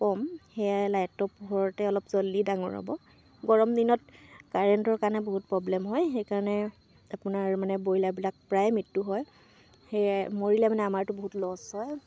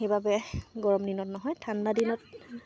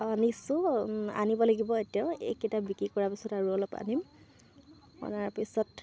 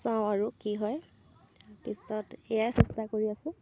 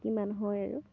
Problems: constant background noise